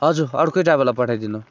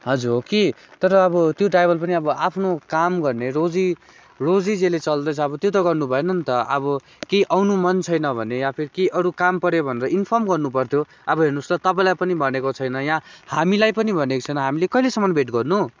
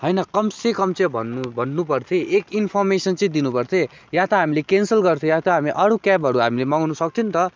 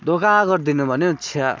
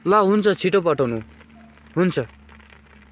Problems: constant background noise